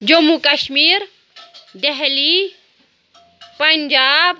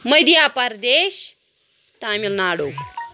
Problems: constant background noise